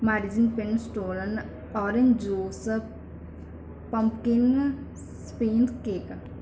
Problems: background sounds at intervals